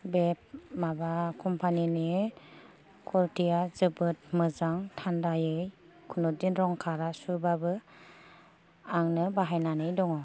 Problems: low volume